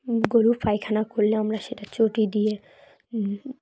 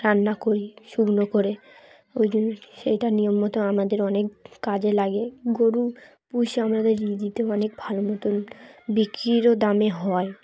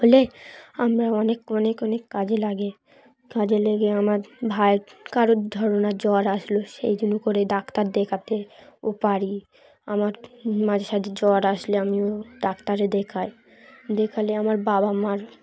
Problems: none marked